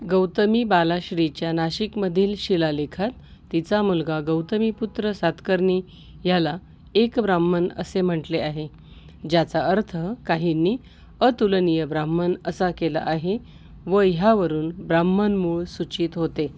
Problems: constant background noise